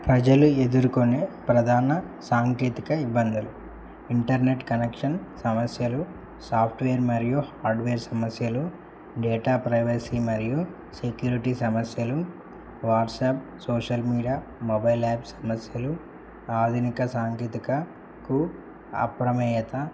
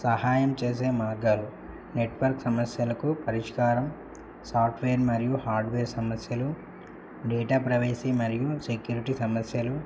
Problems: low volume